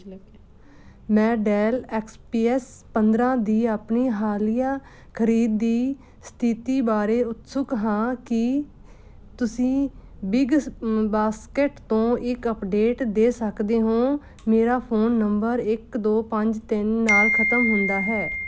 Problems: none marked